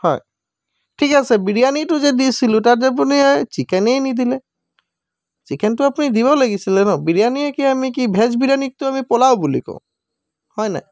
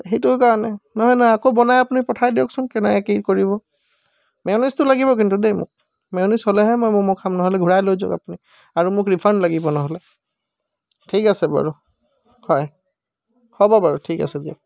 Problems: background sounds at intervals